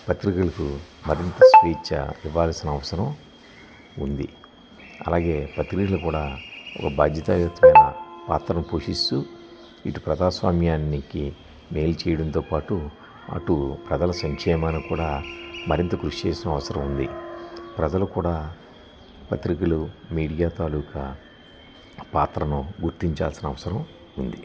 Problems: background sounds at intervals